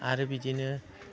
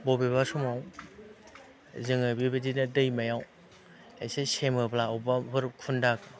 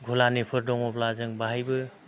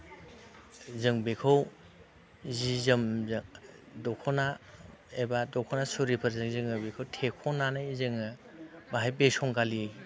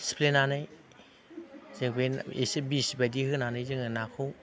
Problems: constant background noise